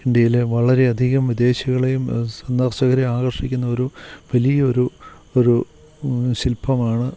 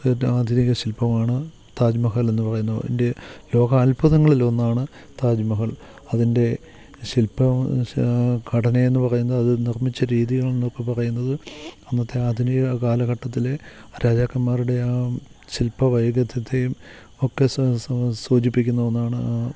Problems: none marked